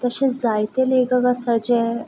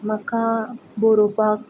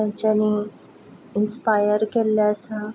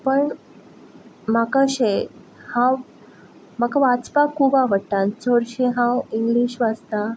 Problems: constant background noise